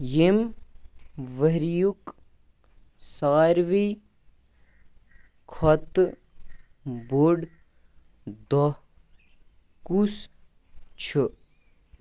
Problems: background sounds at intervals